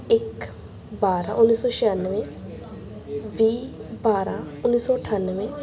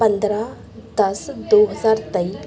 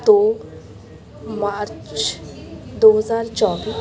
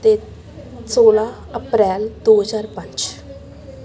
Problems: continuous background conversations